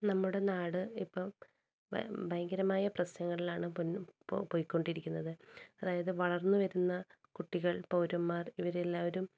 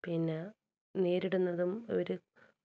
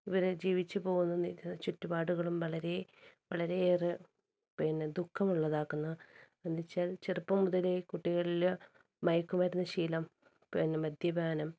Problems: low volume